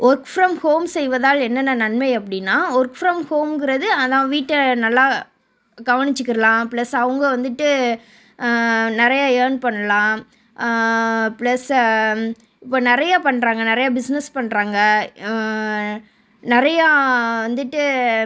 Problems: background sounds at intervals